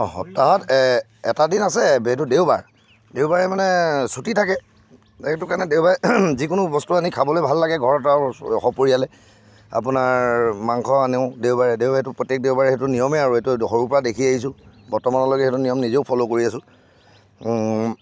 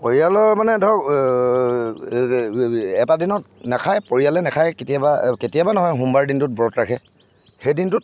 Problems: none marked